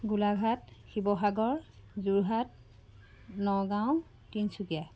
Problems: none marked